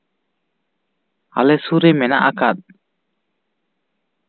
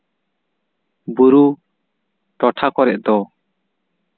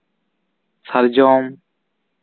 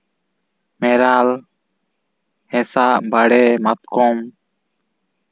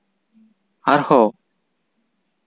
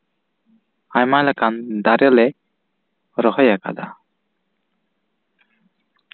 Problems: none marked